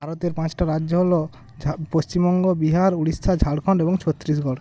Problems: constant background noise